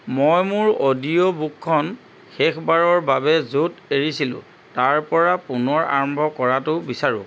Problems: none marked